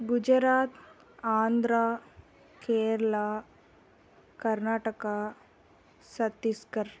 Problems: none marked